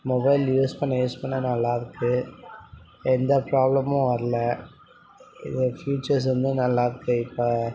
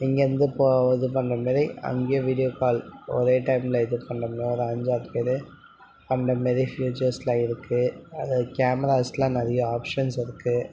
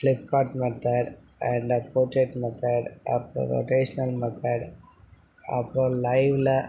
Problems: background conversations at intervals